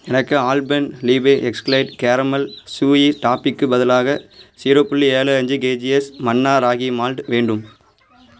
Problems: background sounds at intervals